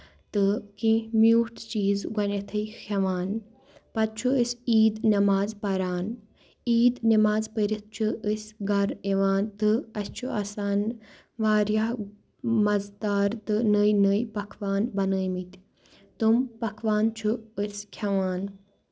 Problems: none marked